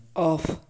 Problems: background sounds at intervals